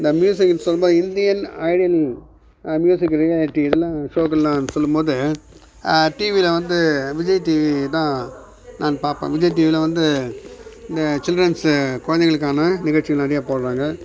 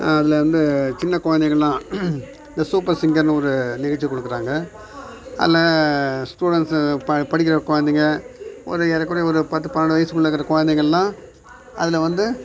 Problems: background sounds at intervals